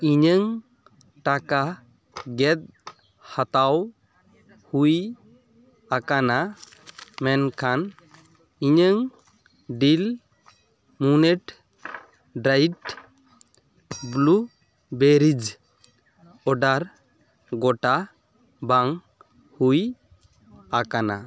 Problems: background sounds at intervals, continuous background conversations